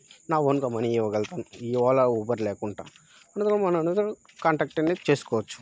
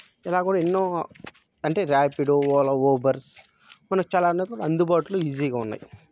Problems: background sounds at intervals